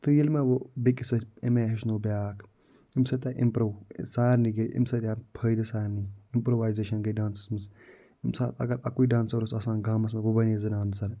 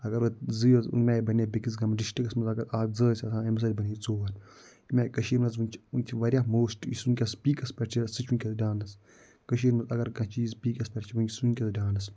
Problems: none marked